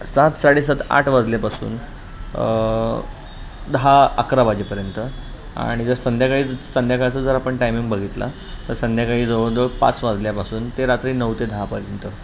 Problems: constant background noise